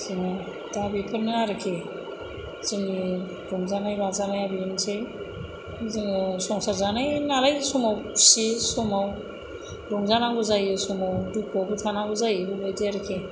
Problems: constant background noise